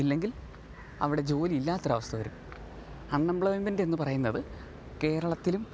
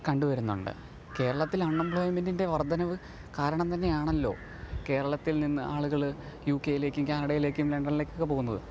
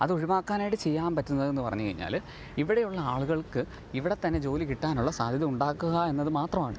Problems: none marked